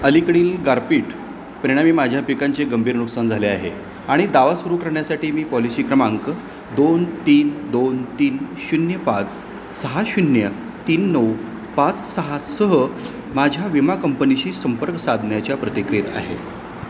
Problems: constant background noise